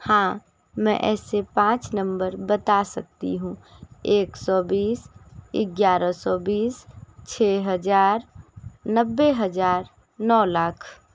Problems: constant background noise